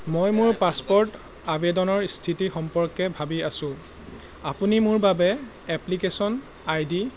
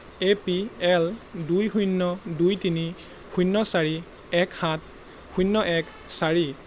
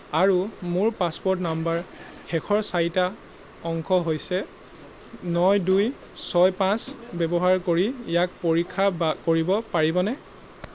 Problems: background sounds at intervals